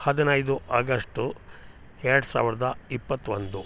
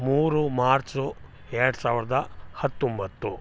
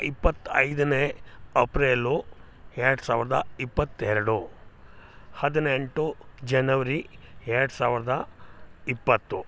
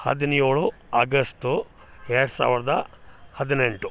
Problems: none marked